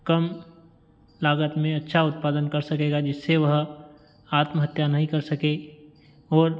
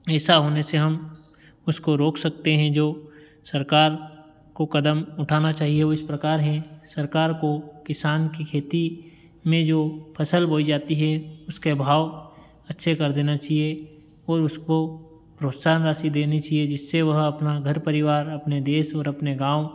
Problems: background sounds at intervals